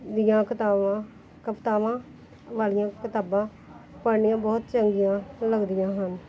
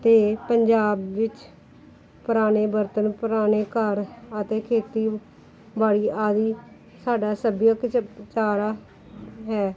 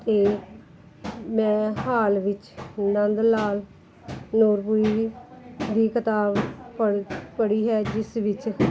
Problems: background sounds at intervals, background conversations at intervals